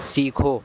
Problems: constant background noise